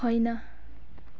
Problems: background sounds at intervals